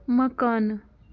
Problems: constant background noise